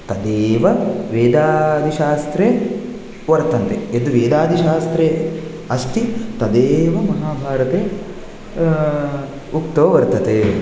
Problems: none marked